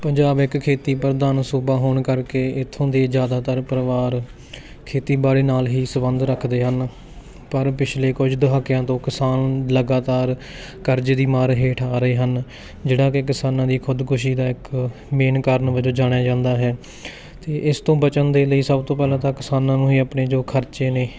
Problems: constant background noise